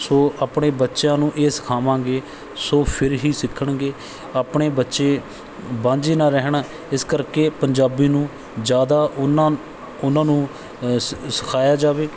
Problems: background sounds at intervals